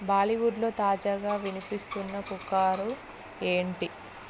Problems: background sounds at intervals